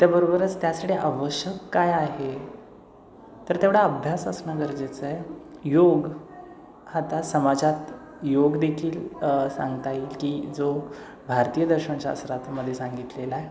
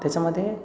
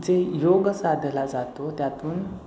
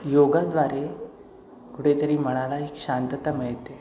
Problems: constant background noise, echo